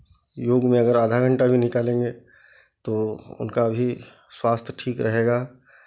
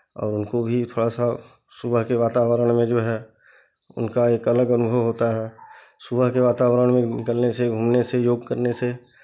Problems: background sounds at intervals